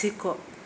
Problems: none marked